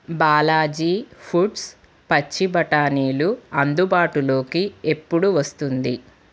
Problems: constant background noise